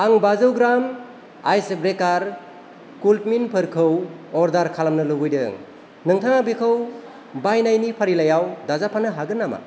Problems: constant background noise